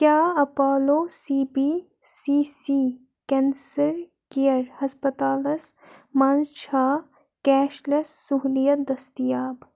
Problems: none marked